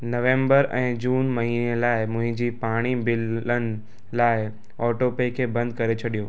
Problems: constant background noise